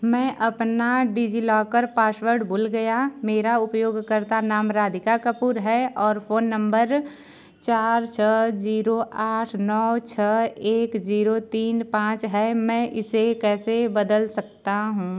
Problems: background sounds at intervals